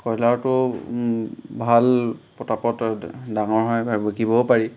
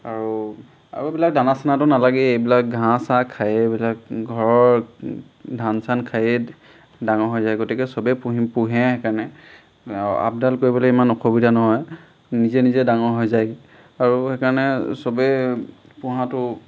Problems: none marked